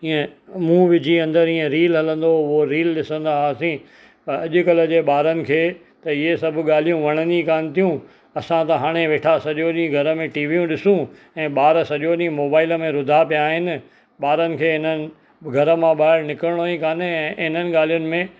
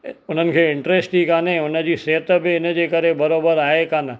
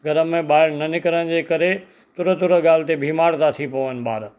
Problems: constant background noise